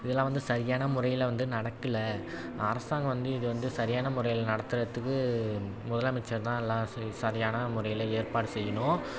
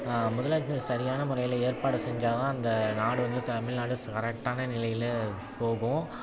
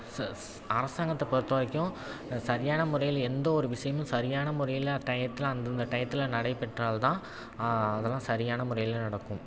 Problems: background sounds at intervals, background conversations at intervals